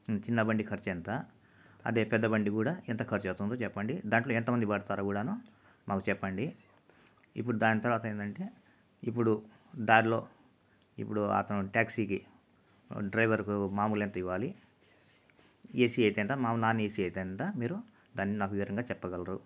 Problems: constant background noise